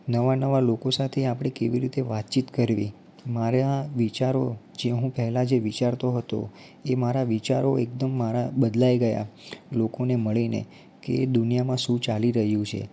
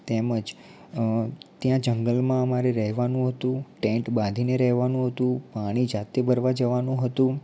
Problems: low volume